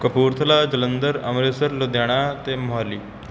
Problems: constant background noise